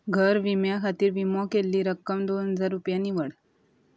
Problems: constant background noise